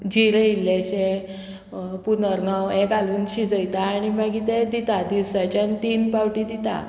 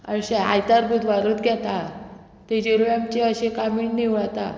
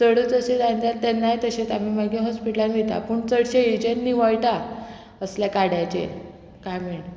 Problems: none marked